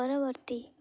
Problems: none marked